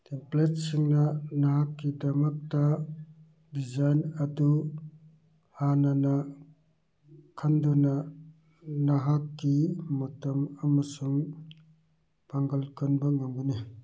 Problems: none marked